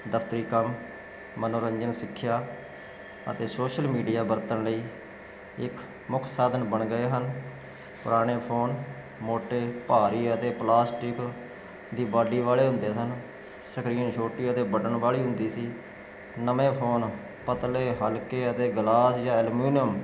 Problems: none marked